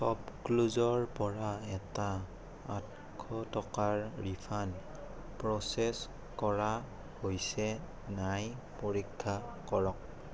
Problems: constant background noise